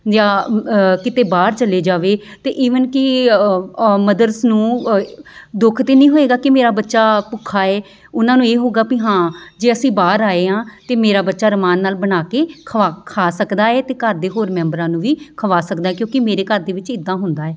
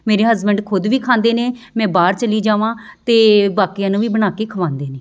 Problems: constant background noise